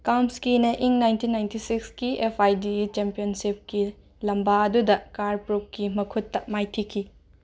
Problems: background sounds at intervals